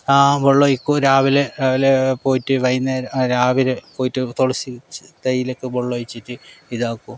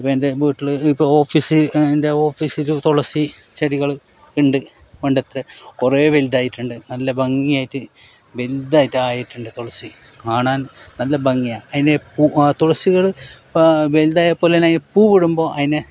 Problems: background sounds at intervals